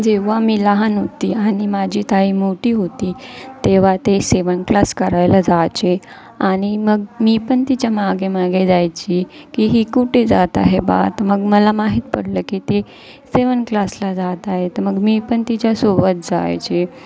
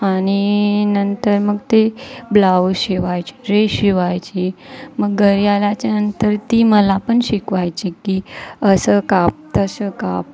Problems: constant background noise, continuous background conversations